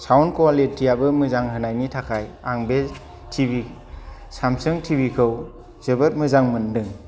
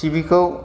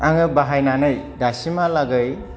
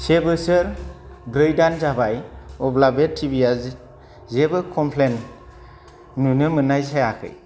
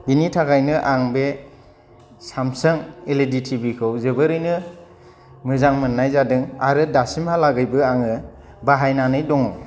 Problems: none marked